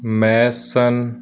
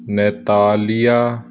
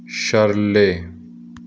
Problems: constant background noise